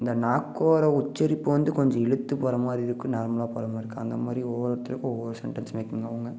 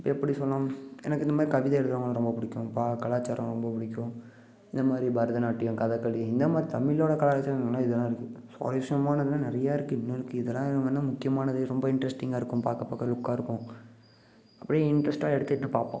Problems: background sounds at intervals